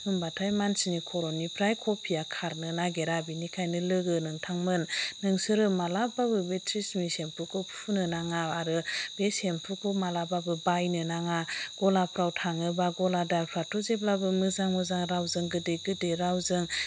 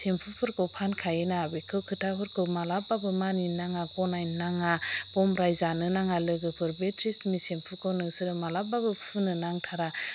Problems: constant background noise